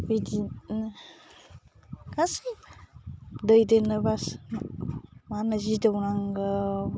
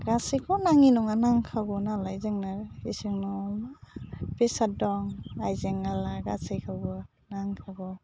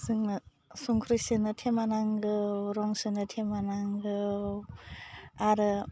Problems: low volume